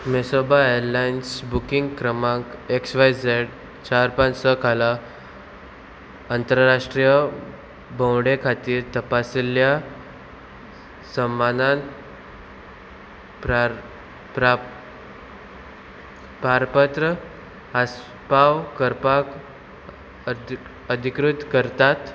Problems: constant background noise